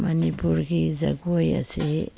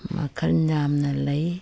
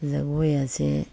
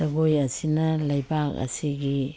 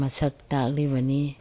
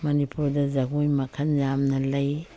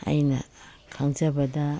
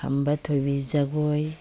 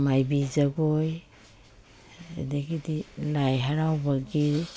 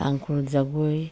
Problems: background sounds at intervals